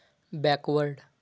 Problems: none marked